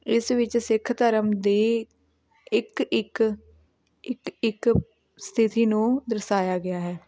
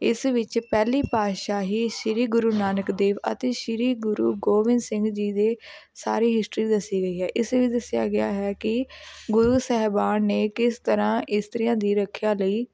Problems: background sounds at intervals